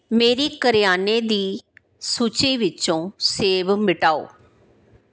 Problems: none marked